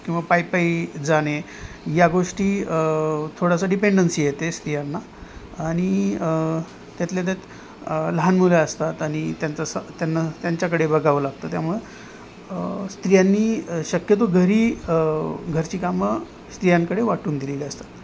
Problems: constant background noise